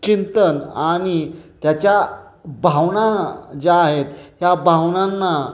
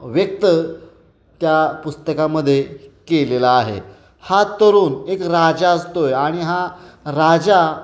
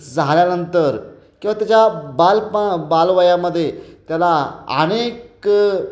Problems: constant background noise, background conversations at intervals, echo